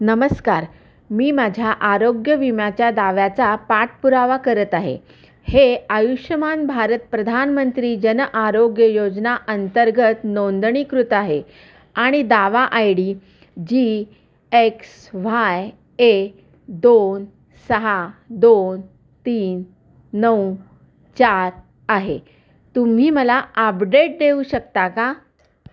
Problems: none marked